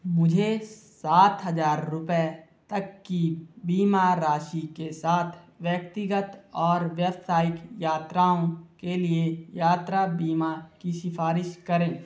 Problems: constant background noise